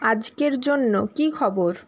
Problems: constant background noise